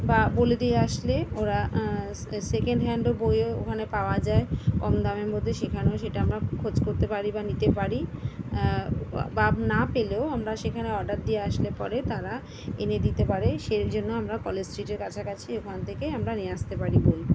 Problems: none marked